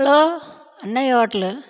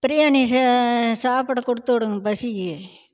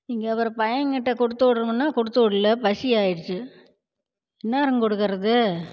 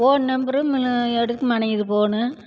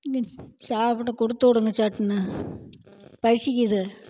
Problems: constant background noise